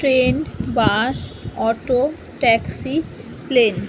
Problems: constant background noise